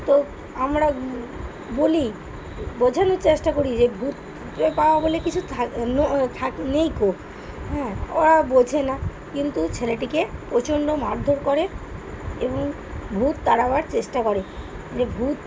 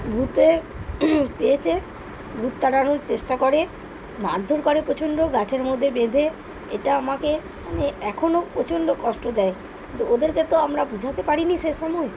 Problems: none marked